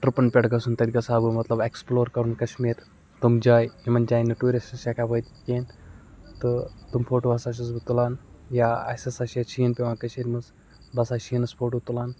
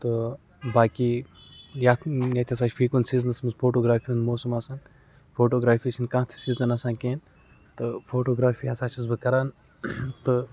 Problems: background sounds at intervals